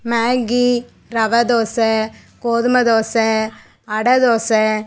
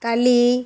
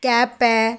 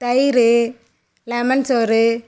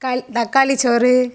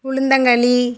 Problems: none marked